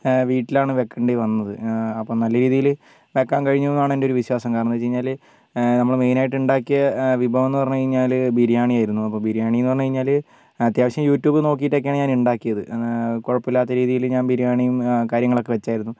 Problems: low volume